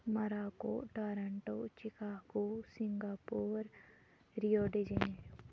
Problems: constant background noise